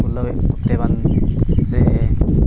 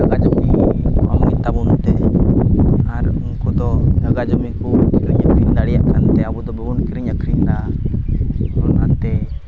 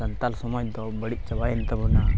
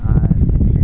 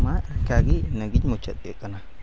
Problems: constant background noise, low volume